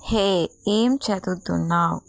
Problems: constant background noise